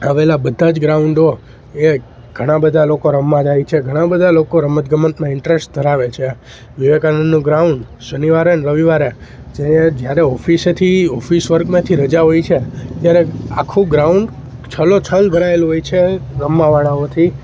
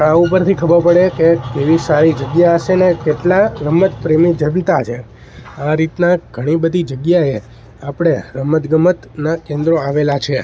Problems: background sounds at intervals